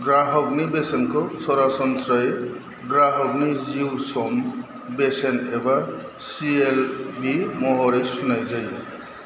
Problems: constant background noise